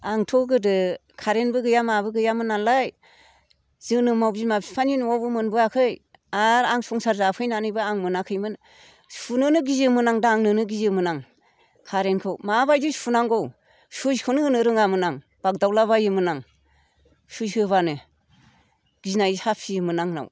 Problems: none marked